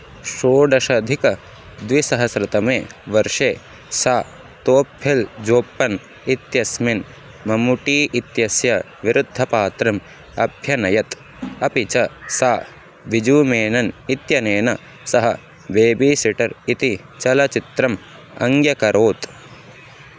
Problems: constant background noise